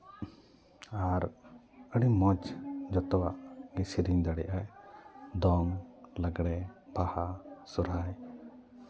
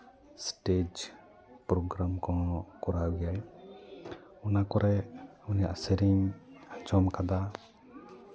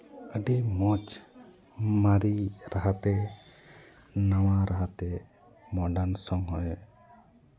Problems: none marked